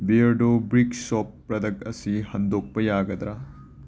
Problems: none marked